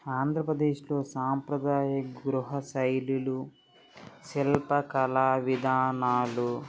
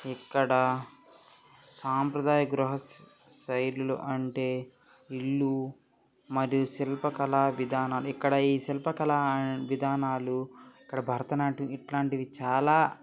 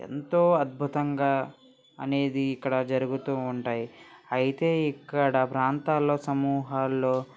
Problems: background conversations at intervals